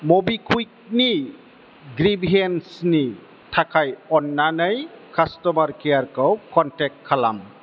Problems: constant background noise